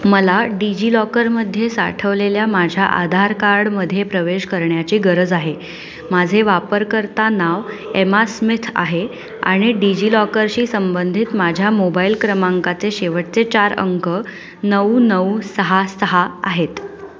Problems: none marked